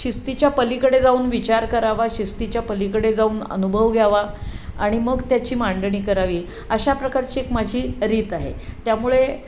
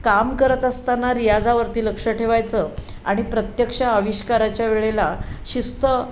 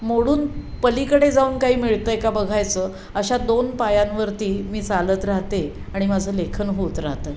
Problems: none marked